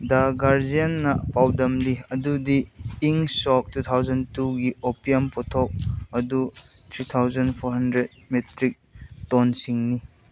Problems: background sounds at intervals